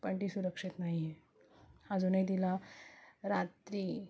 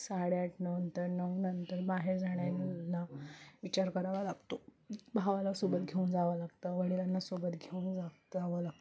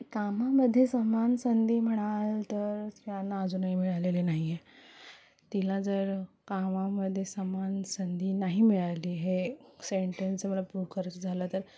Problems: none marked